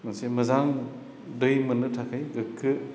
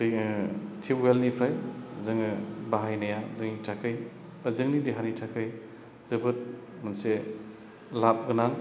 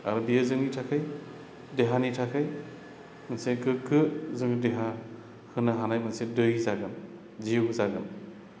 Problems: constant background noise